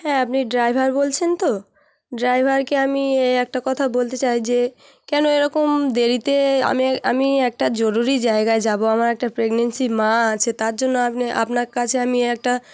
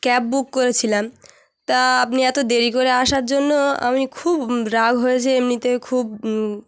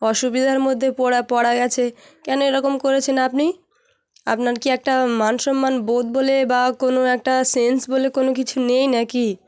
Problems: background sounds at intervals